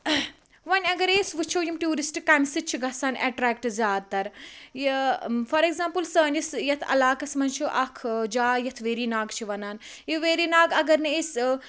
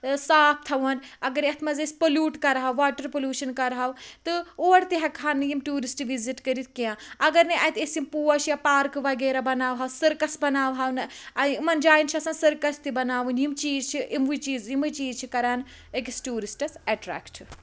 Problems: background sounds at intervals